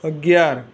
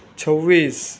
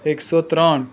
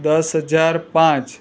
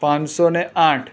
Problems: none marked